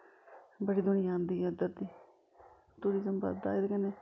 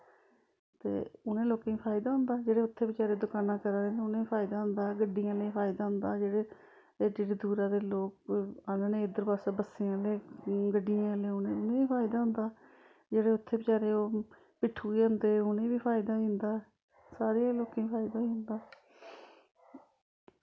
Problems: background sounds at intervals